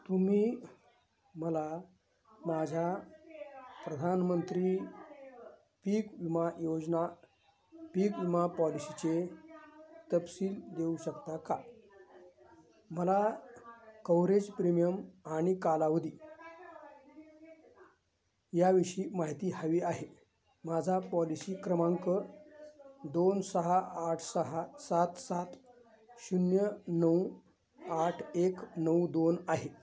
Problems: constant background noise, continuous background conversations